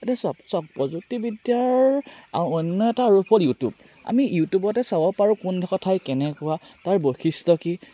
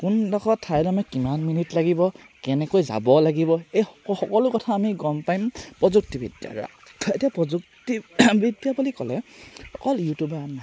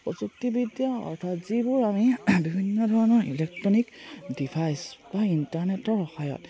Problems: none marked